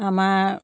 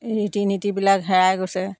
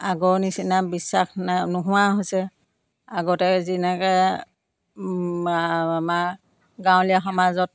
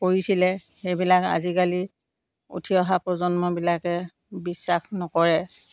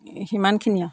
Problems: none marked